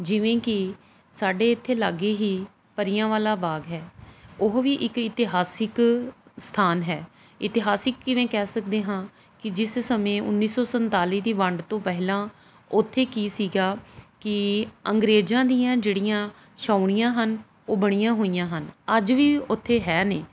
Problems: background sounds at intervals